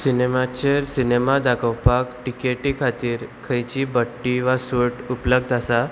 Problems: none marked